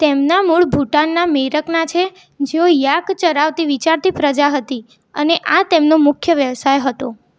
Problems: none marked